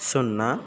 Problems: none marked